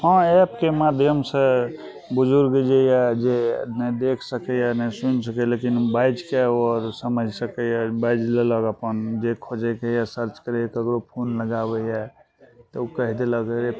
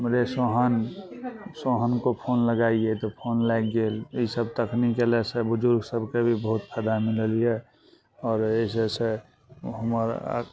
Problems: none marked